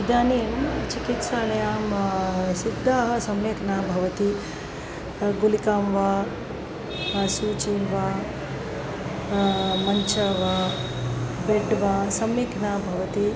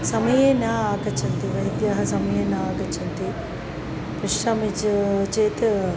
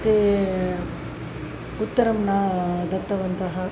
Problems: none marked